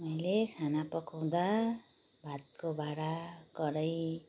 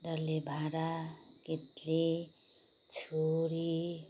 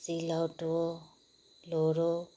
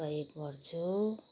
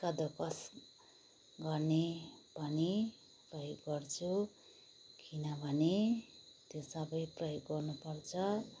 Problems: background sounds at intervals